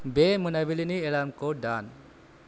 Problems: low volume